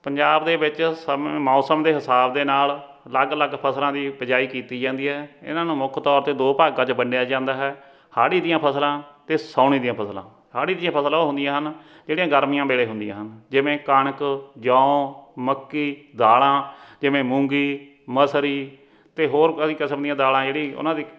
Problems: none marked